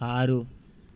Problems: constant background noise